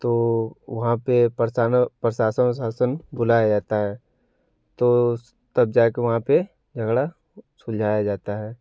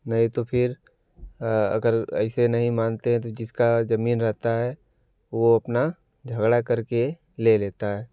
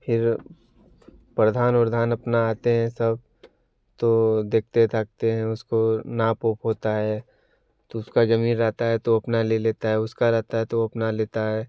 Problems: none marked